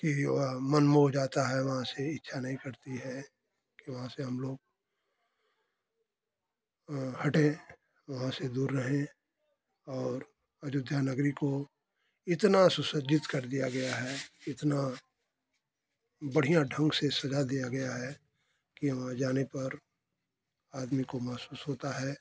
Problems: none marked